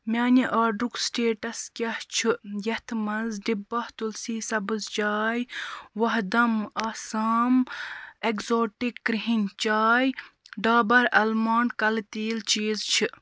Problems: constant background noise